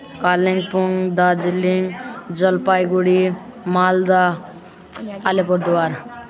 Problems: continuous background conversations